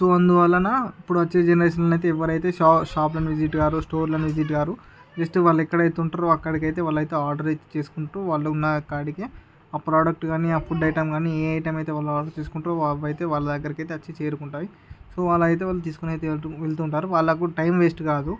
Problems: background sounds at intervals, background conversations at intervals